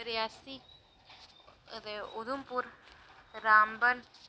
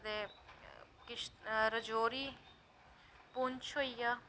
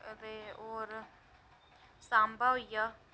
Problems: none marked